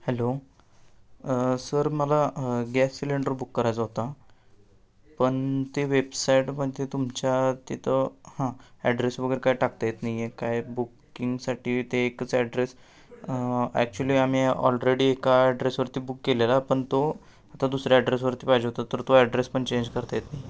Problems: none marked